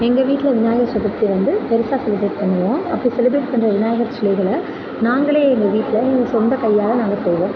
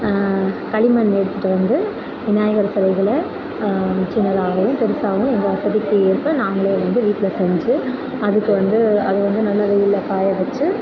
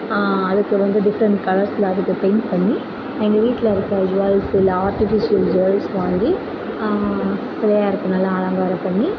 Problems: constant background noise